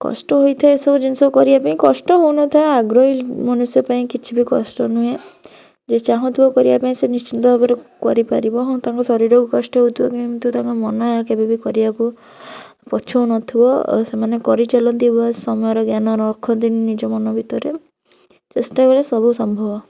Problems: none marked